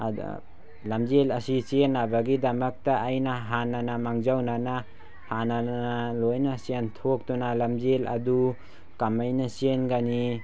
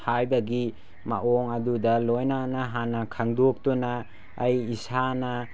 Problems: background sounds at intervals